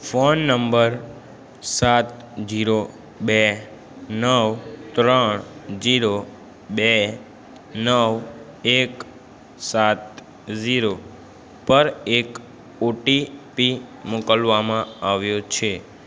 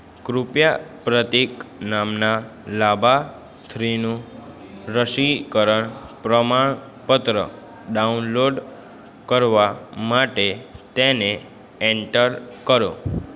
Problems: constant background noise, background conversations at intervals